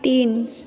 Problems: constant background noise, background conversations at intervals